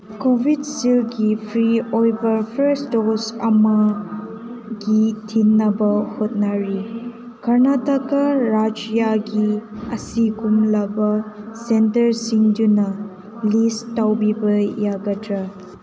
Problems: constant background noise, background conversations at intervals